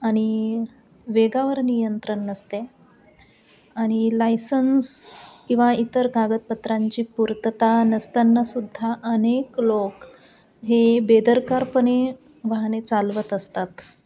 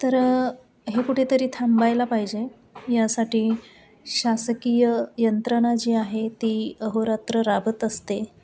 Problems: constant background noise, background conversations at intervals